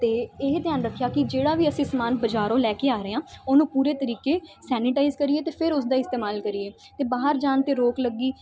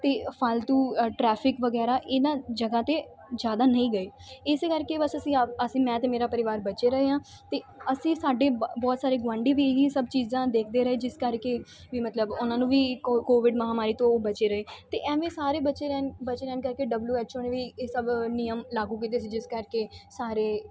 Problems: background sounds at intervals